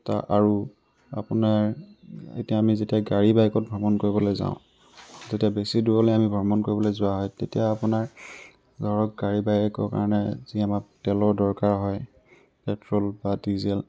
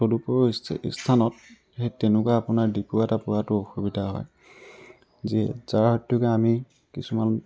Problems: background sounds at intervals